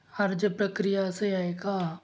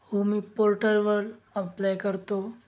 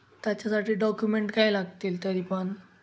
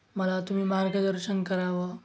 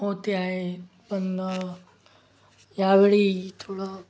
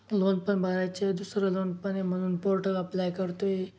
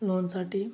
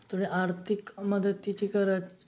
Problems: none marked